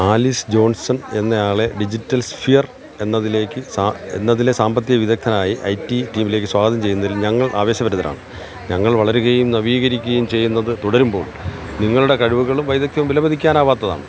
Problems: constant background noise